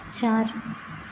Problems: constant background noise, low volume